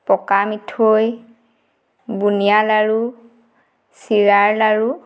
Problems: background sounds at intervals